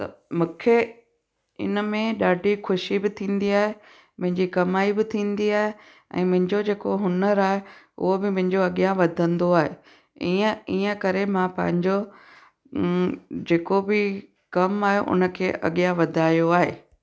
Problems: echo